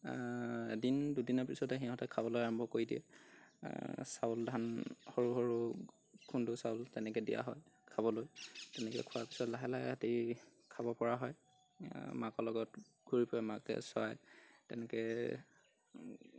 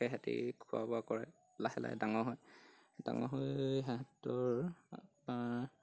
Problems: none marked